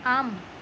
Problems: constant background noise